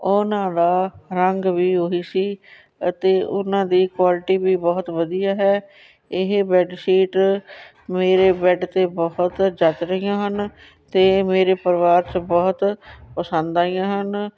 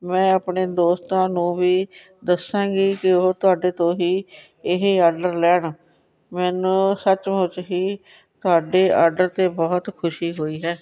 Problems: background conversations at intervals